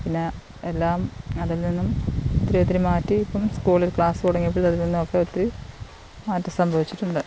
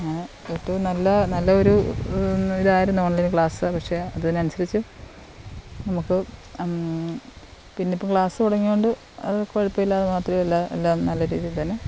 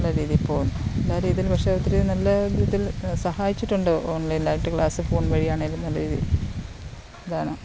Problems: constant background noise